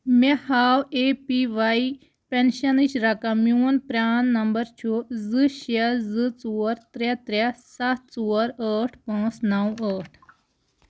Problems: none marked